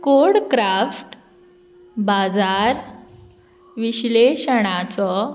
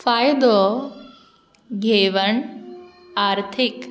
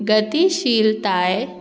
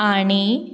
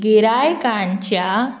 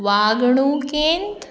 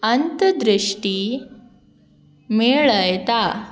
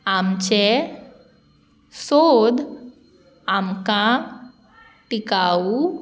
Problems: background sounds at intervals